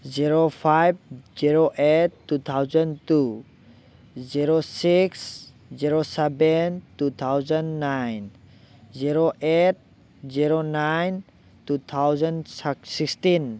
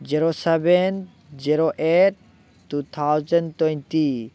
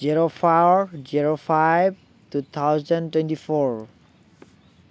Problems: constant background noise